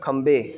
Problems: background sounds at intervals